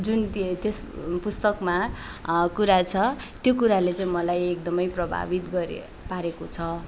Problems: background sounds at intervals